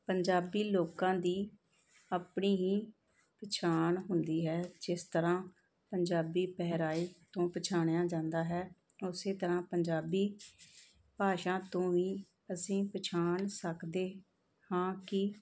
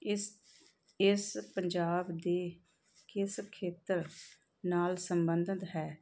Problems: background sounds at intervals